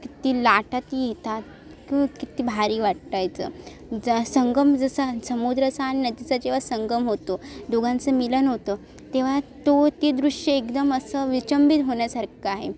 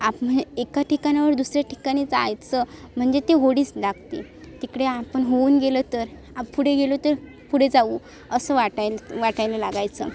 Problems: constant background noise